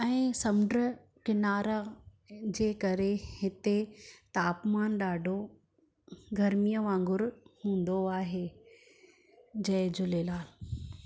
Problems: background sounds at intervals